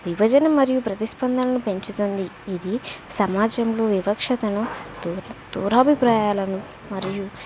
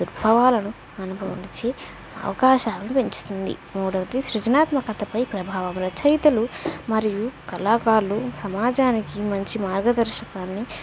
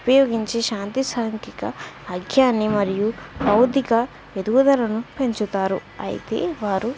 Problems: none marked